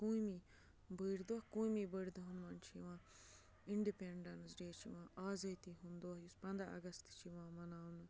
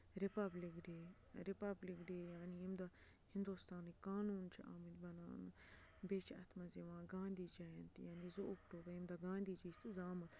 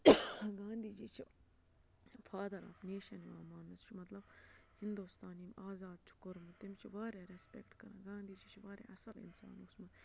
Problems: constant background noise, low volume